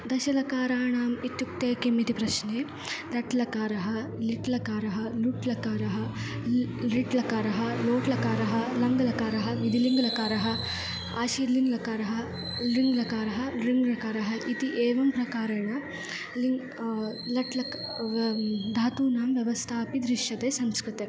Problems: background sounds at intervals